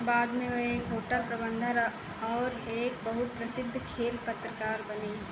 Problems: constant background noise